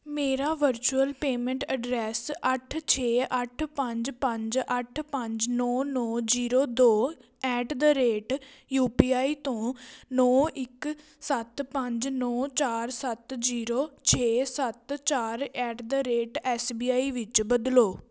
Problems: background sounds at intervals